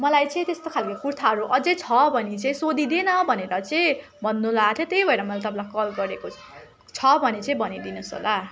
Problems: constant background noise, continuous background conversations